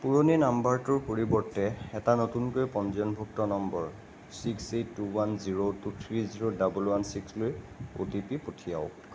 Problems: constant background noise